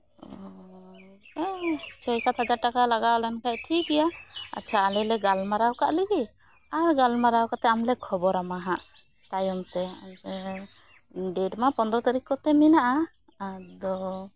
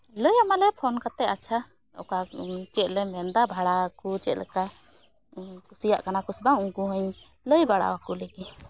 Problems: none marked